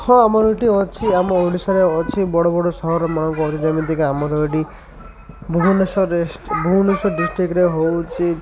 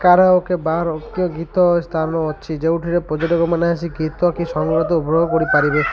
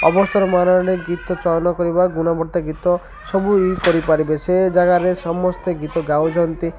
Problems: constant background noise, continuous background conversations